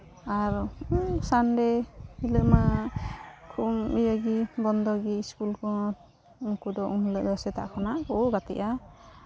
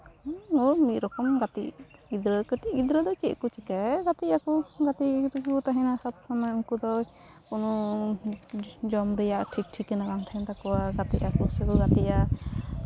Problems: constant background noise